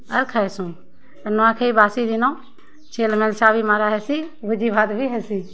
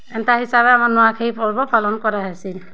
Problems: constant background noise, continuous background conversations